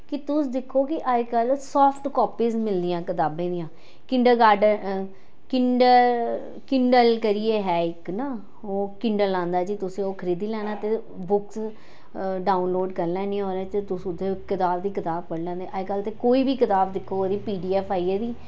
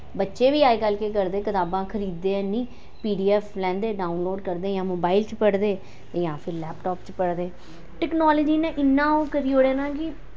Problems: none marked